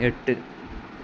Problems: constant background noise